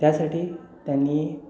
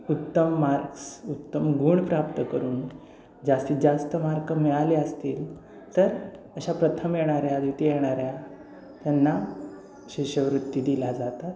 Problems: constant background noise